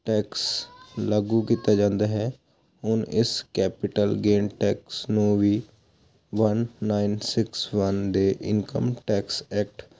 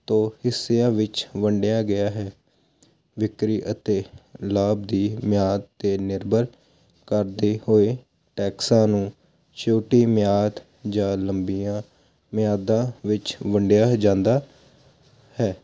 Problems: none marked